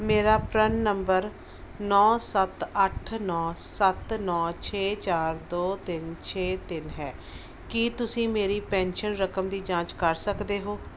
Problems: background sounds at intervals